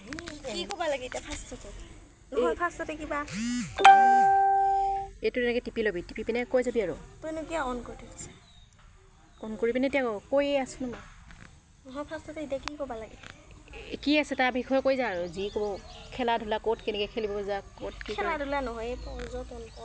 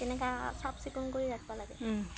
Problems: background sounds at intervals